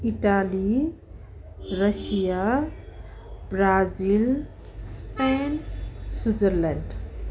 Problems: constant background noise